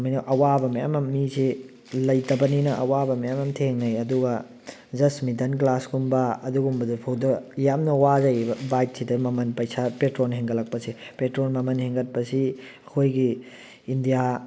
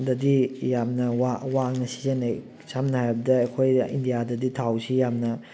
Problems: background conversations at intervals